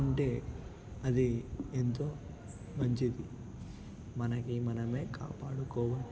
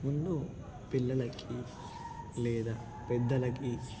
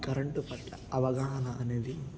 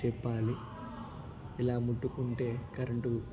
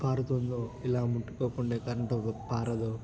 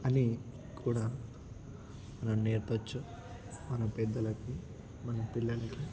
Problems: constant background noise, continuous background conversations